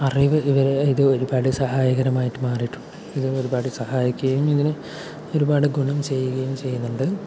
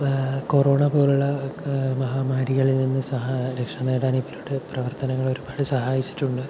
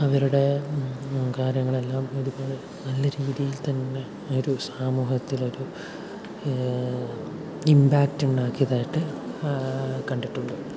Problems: constant background noise, low volume